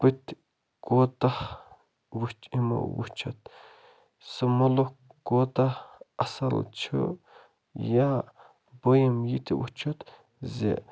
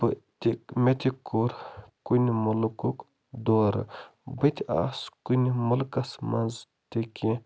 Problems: constant background noise